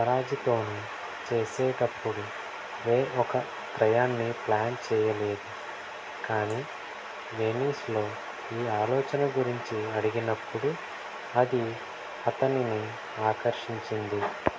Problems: constant background noise, low volume